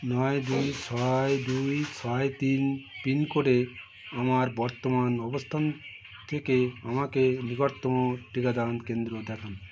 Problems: constant background noise